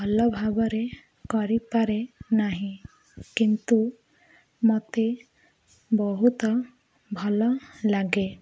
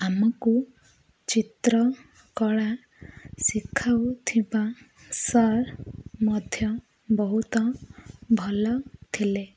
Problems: none marked